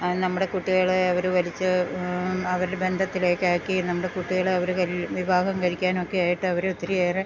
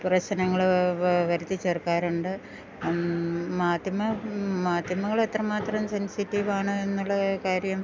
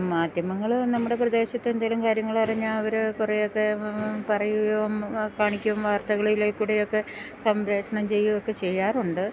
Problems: background sounds at intervals